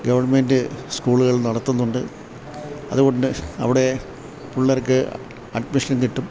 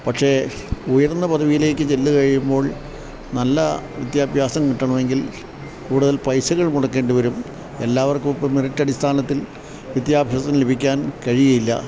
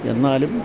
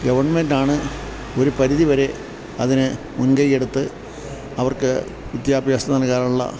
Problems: none marked